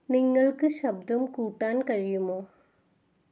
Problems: background sounds at intervals